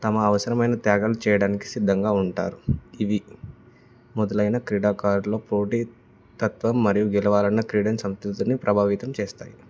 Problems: background sounds at intervals